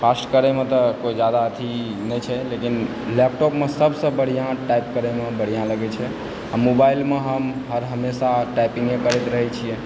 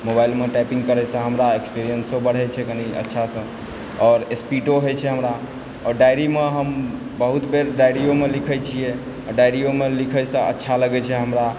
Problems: constant background noise